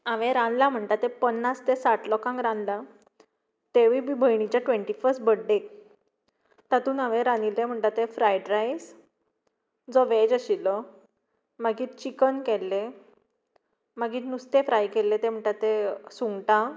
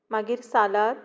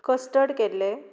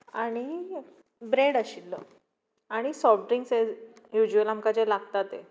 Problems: background sounds at intervals